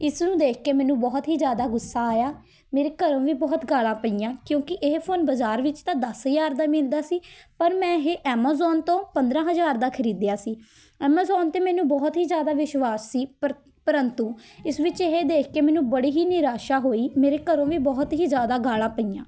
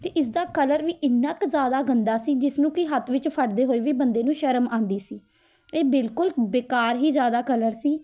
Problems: none marked